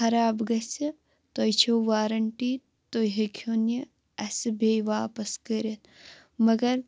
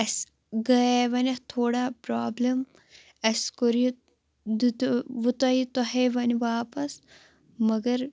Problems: constant background noise